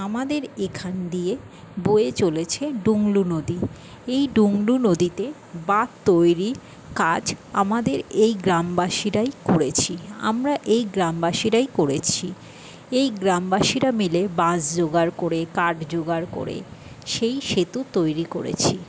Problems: none marked